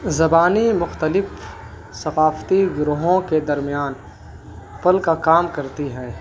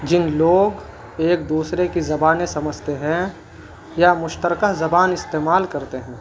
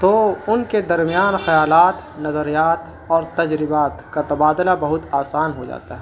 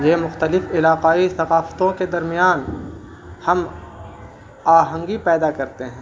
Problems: constant background noise